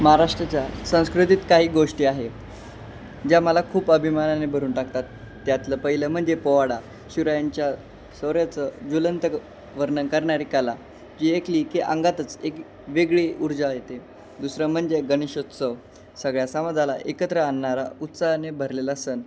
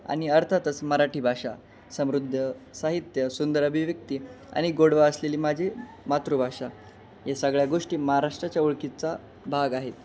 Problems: constant background noise, background conversations at intervals